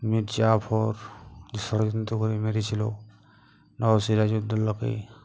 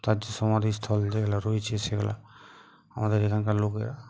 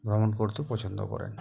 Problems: none marked